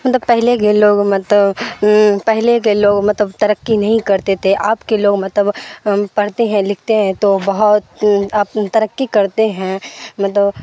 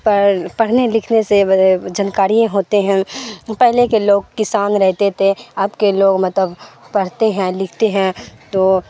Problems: constant background noise